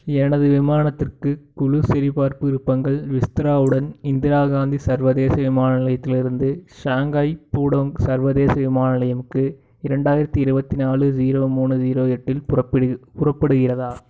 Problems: background sounds at intervals